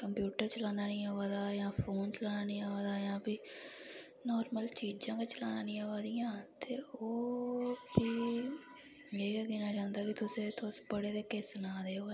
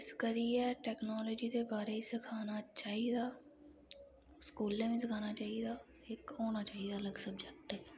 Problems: low volume